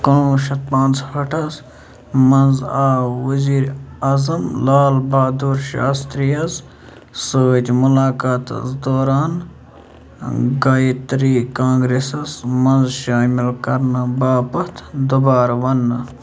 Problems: none marked